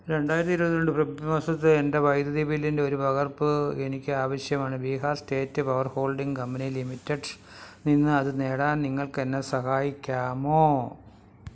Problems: none marked